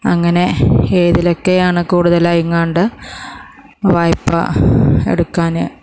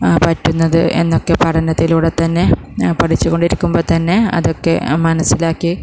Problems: none marked